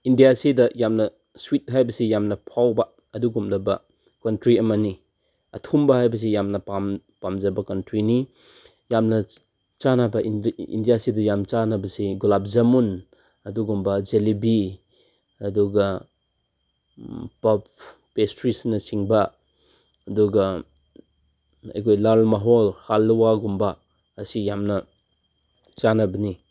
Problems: background sounds at intervals